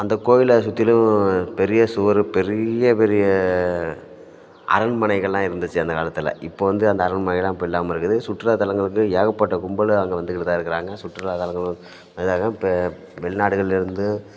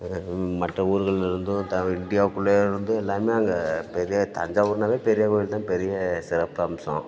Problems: constant background noise, background conversations at intervals